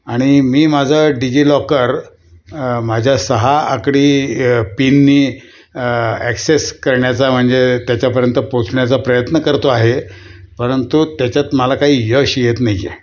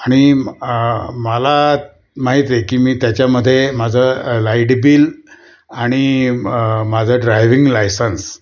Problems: none marked